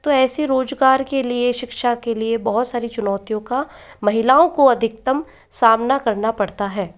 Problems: background sounds at intervals, echo